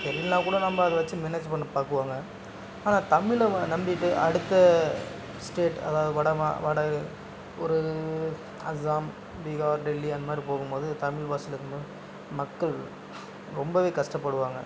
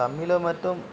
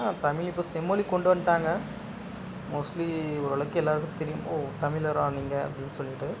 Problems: constant background noise